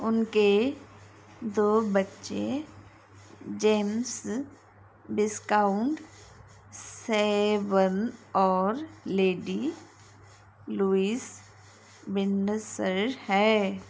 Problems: constant background noise